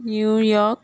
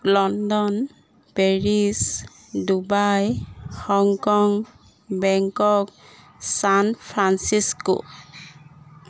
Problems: background sounds at intervals